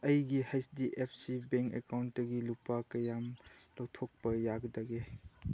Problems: background sounds at intervals